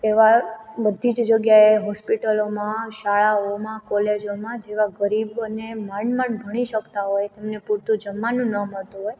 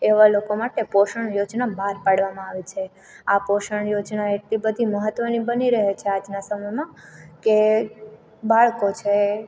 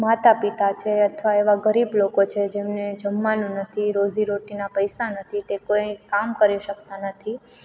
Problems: none marked